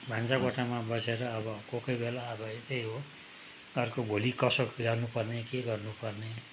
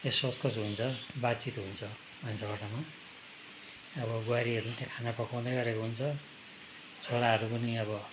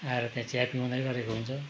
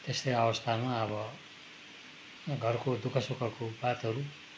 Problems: background sounds at intervals